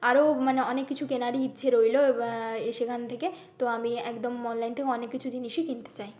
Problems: constant background noise